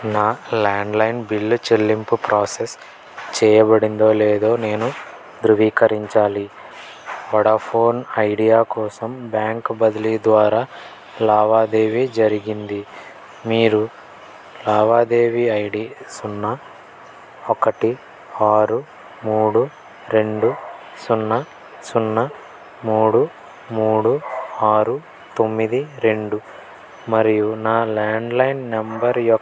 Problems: constant background noise